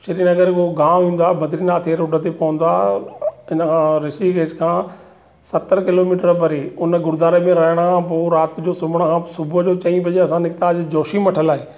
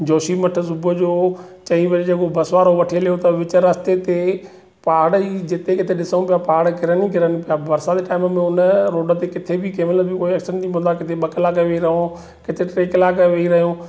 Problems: none marked